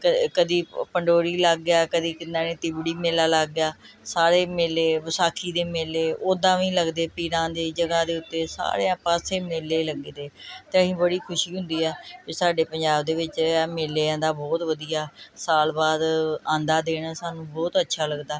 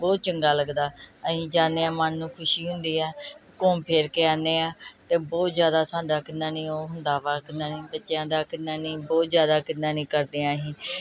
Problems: background sounds at intervals